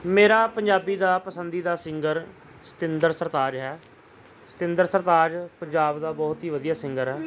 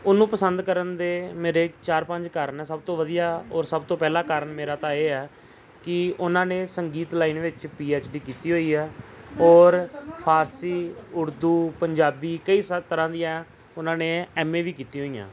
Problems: background conversations at intervals